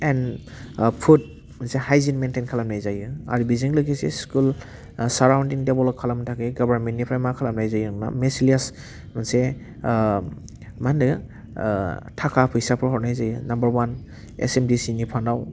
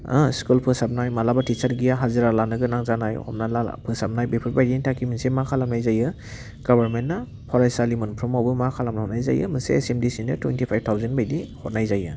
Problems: none marked